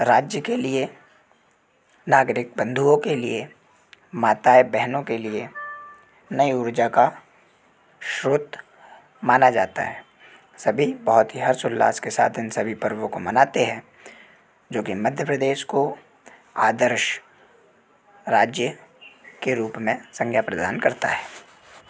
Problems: none marked